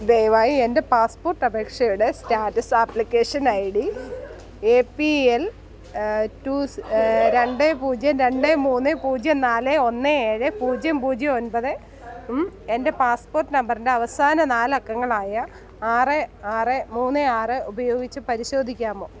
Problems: none marked